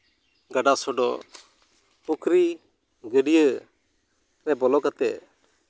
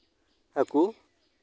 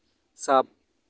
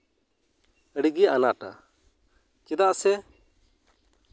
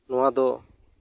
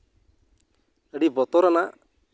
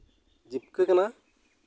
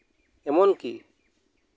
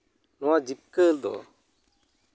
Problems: none marked